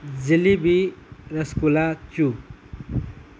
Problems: constant background noise